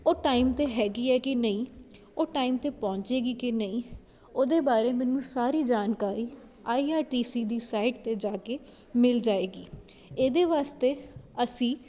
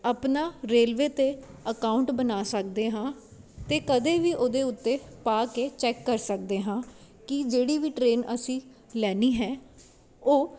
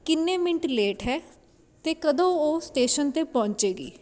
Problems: none marked